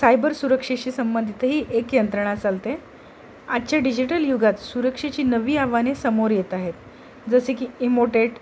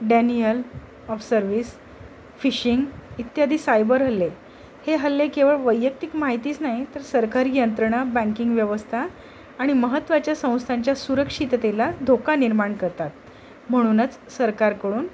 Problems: constant background noise